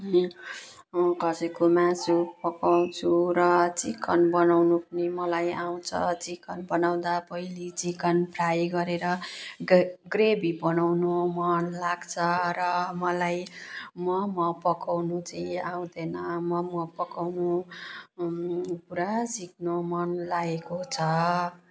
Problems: background sounds at intervals